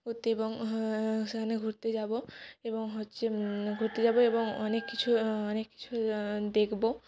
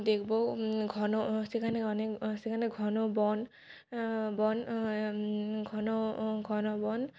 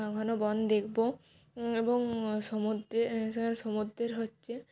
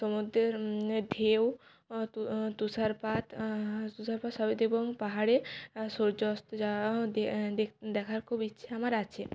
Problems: background sounds at intervals